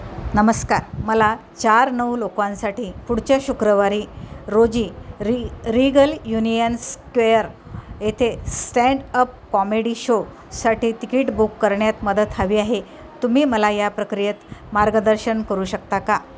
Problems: constant background noise, background conversations at intervals